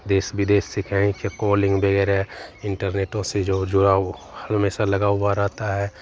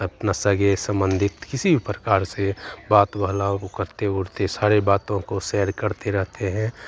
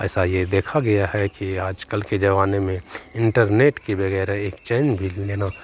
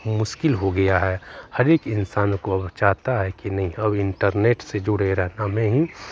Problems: none marked